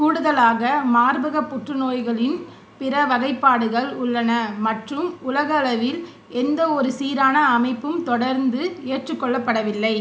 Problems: none marked